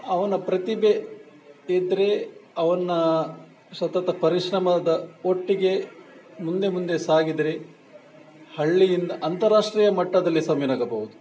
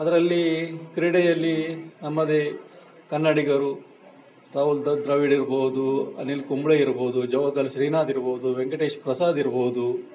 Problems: background sounds at intervals